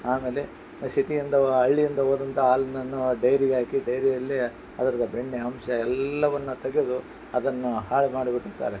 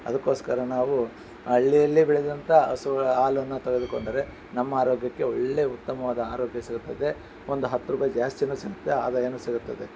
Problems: background sounds at intervals